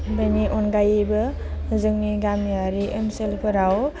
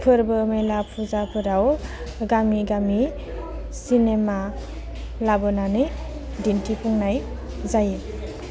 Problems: low volume